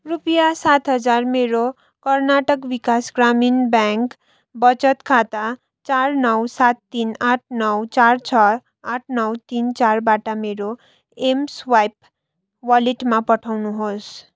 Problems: none marked